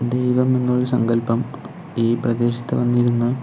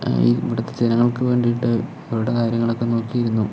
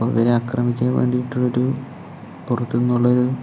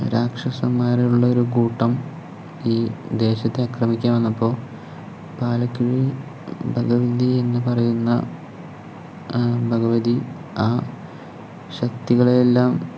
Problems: none marked